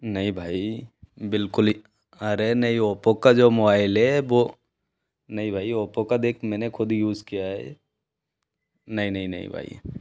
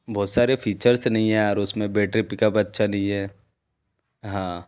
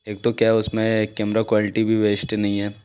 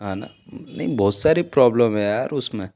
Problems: background sounds at intervals